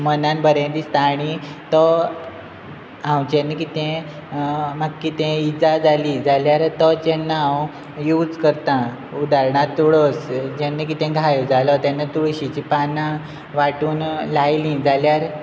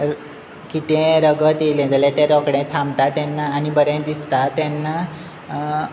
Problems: constant background noise